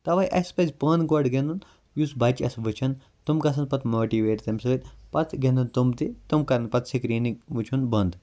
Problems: constant background noise